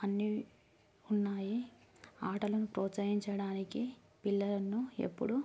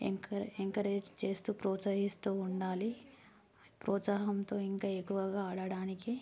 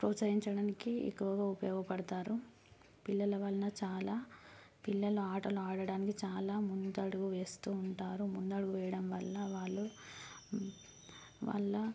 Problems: low volume